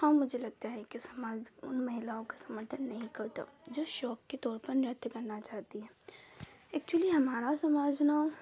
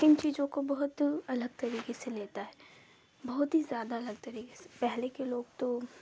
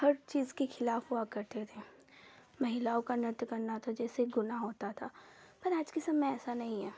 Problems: none marked